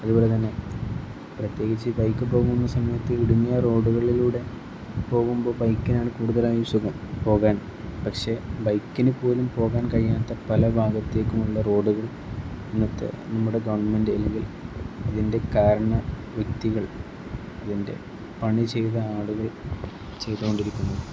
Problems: constant background noise